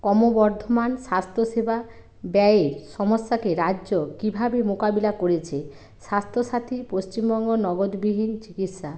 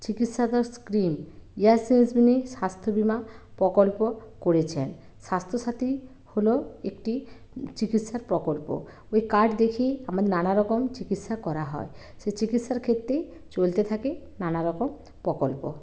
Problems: none marked